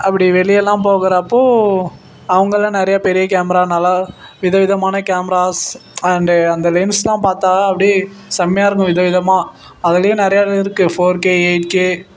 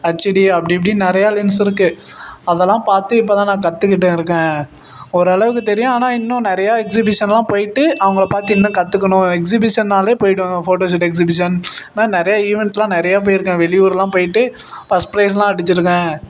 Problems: constant background noise